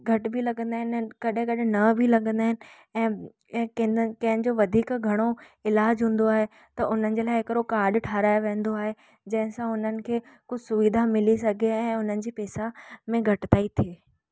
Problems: none marked